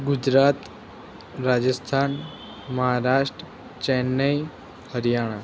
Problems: background sounds at intervals